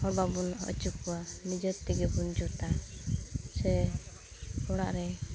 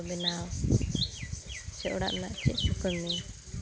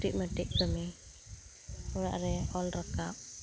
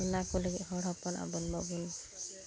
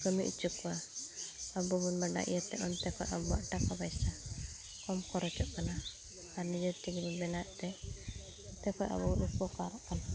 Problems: background sounds at intervals